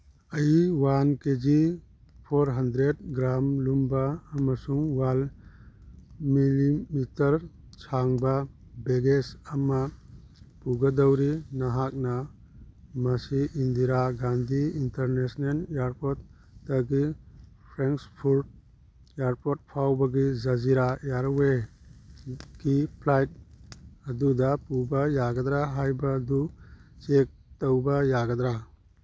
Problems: none marked